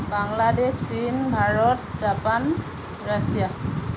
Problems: constant background noise